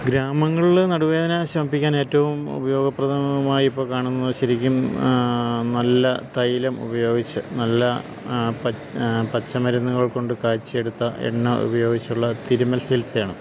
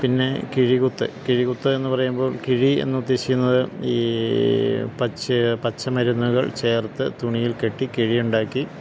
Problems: constant background noise, low volume